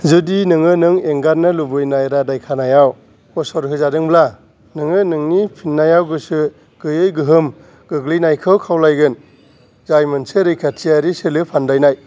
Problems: none marked